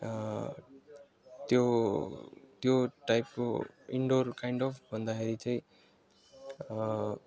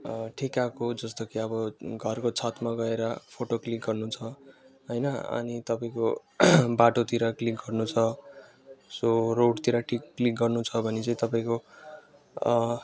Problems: background sounds at intervals